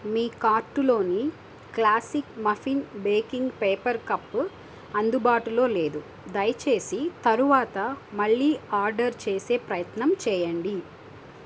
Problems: constant background noise